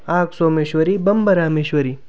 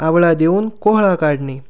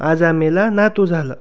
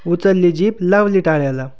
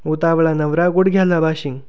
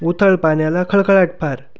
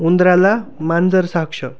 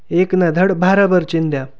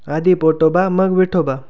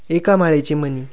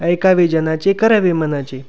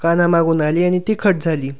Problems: background sounds at intervals